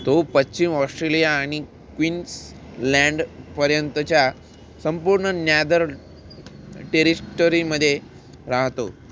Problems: constant background noise